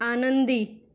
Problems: none marked